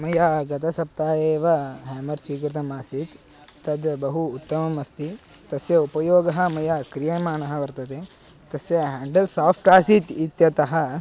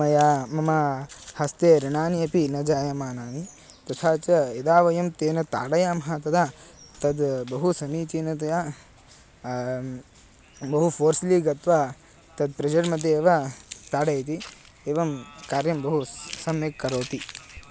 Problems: constant background noise